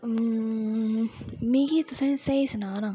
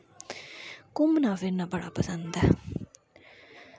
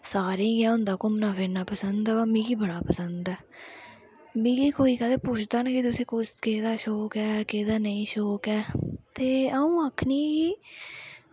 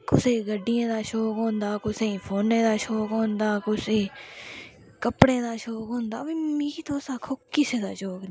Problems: background sounds at intervals